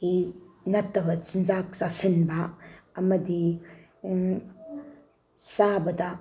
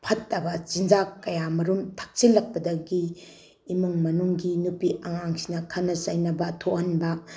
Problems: background sounds at intervals